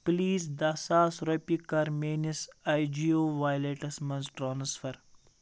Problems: none marked